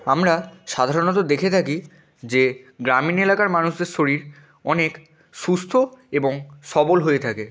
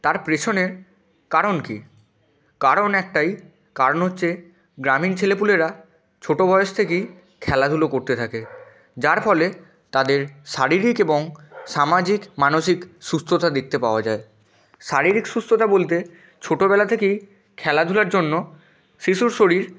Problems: none marked